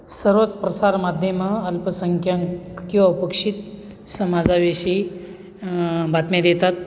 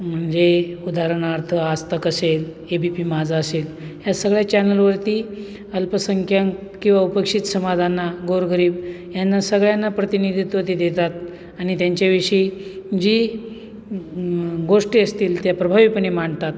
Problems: constant background noise